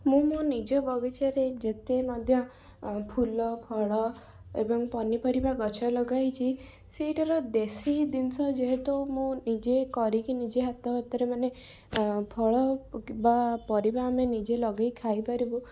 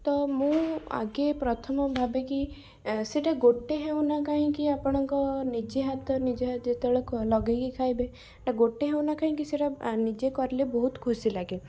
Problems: background sounds at intervals